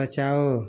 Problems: constant background noise